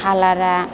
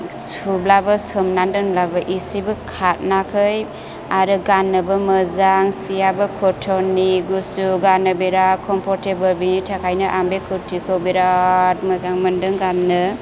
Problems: none marked